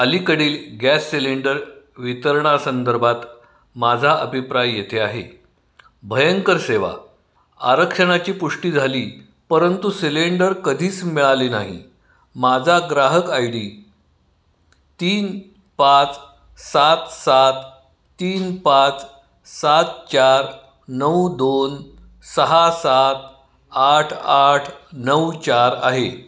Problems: background sounds at intervals